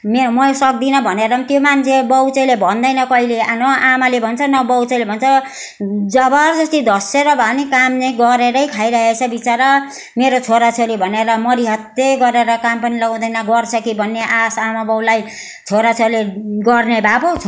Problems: constant background noise